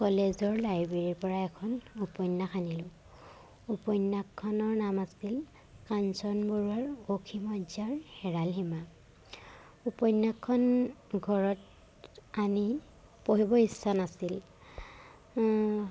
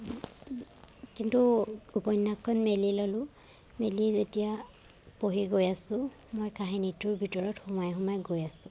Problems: none marked